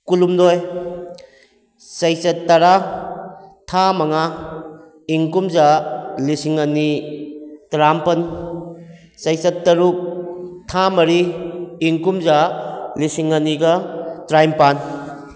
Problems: background sounds at intervals